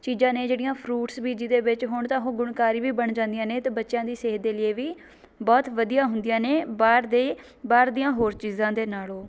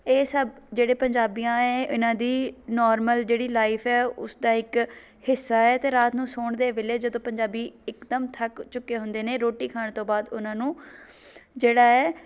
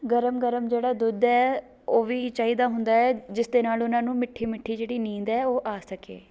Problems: background conversations at intervals